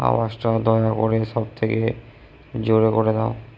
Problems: echo